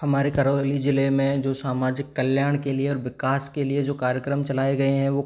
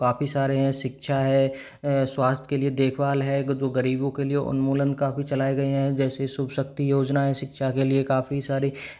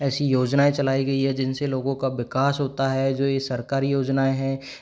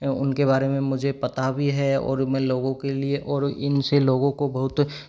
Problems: background sounds at intervals